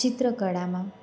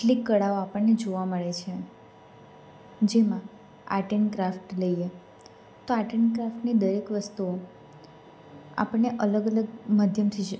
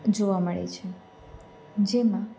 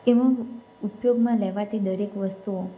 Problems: none marked